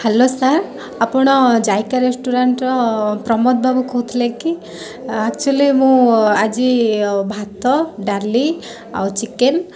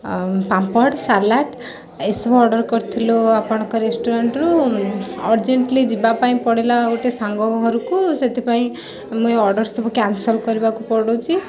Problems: constant background noise